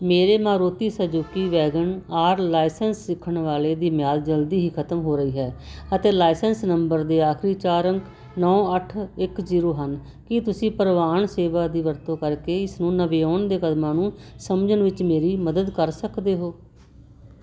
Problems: constant background noise